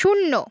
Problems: none marked